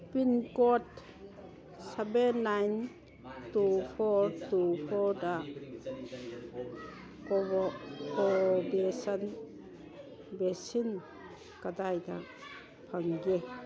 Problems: background conversations at intervals